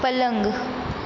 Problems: constant background noise